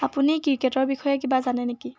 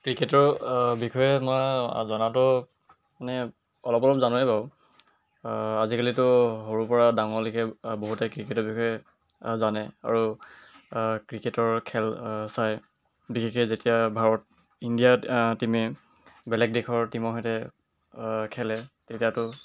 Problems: none marked